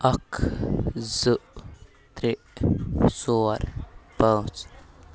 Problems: background sounds at intervals